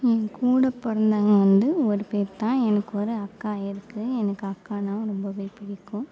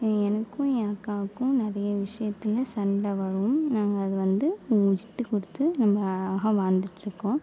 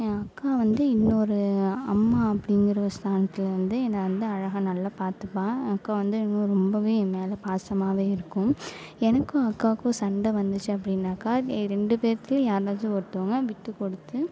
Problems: none marked